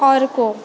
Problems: constant background noise